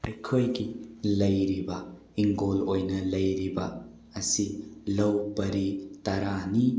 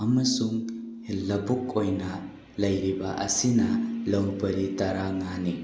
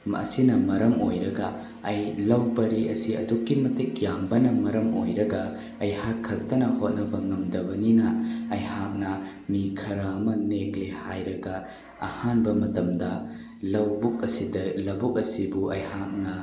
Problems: none marked